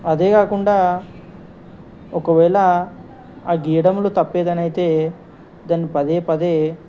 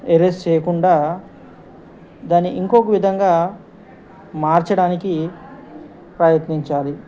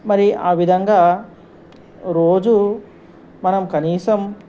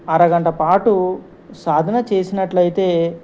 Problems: constant background noise